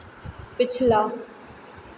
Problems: constant background noise, echo